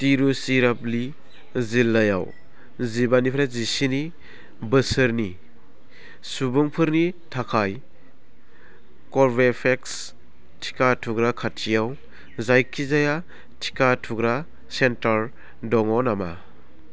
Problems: constant background noise